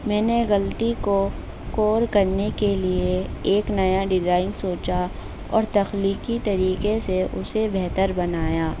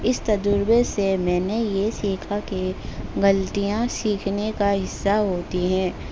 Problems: constant background noise